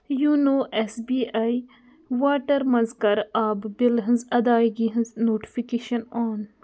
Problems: background sounds at intervals